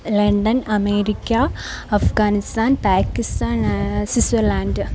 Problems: none marked